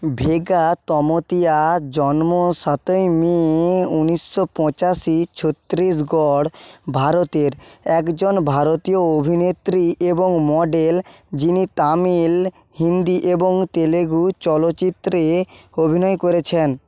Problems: none marked